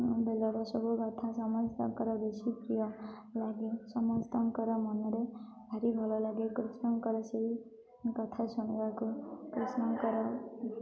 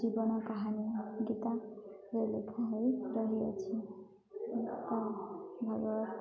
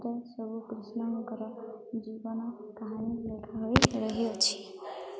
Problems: constant background noise, continuous background conversations